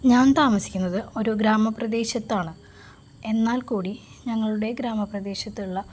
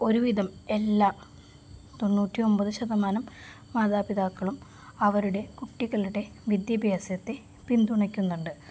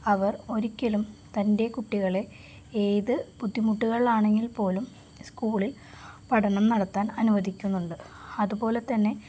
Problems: none marked